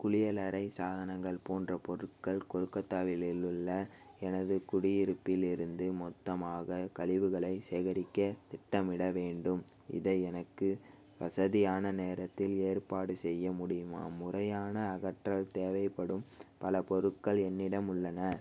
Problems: none marked